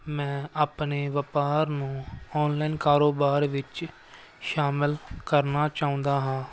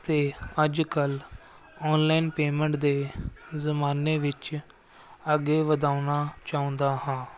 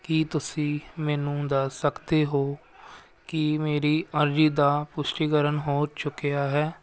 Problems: constant background noise